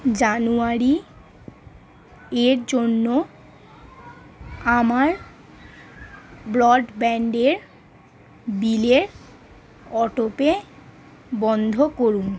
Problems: none marked